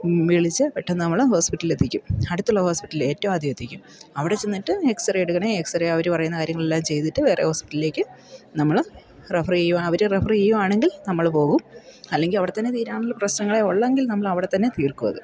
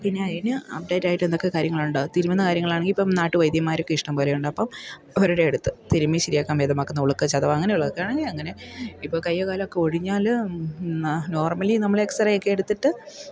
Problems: low volume